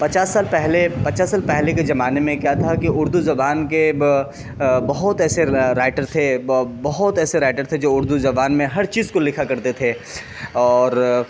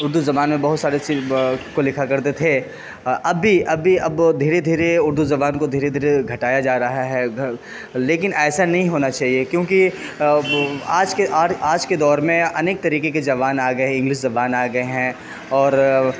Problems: constant background noise